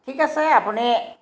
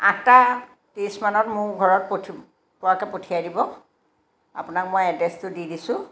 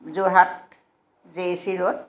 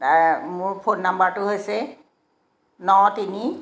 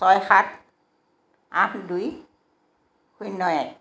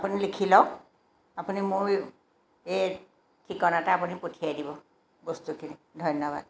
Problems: background sounds at intervals